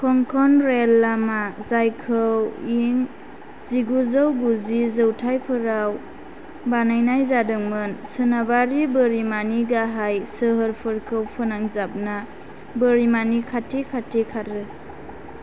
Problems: constant background noise